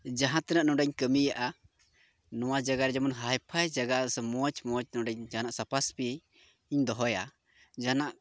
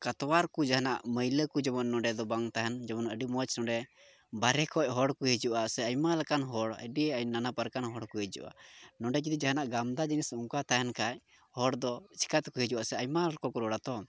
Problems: background sounds at intervals, low volume